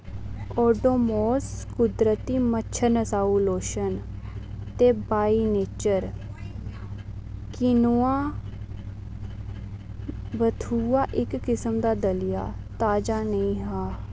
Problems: constant background noise